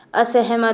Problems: constant background noise